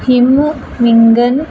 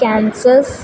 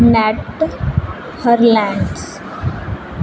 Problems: constant background noise